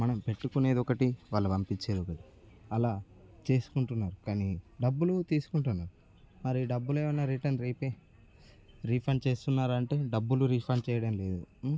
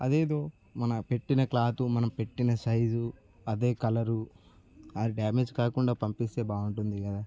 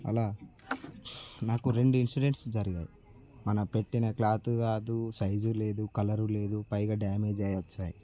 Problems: none marked